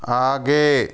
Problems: none marked